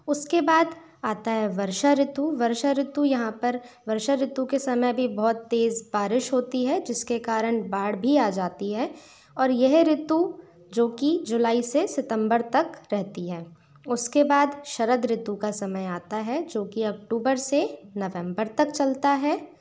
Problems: background sounds at intervals